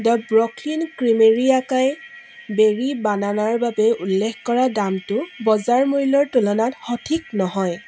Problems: constant background noise